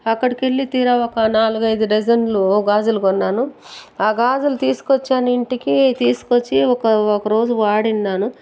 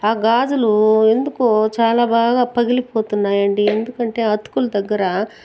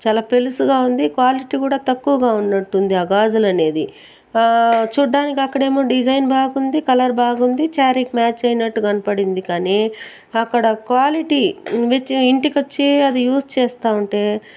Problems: background sounds at intervals